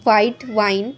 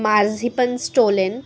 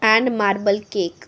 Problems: constant background noise